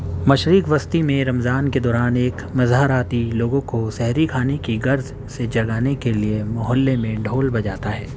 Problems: constant background noise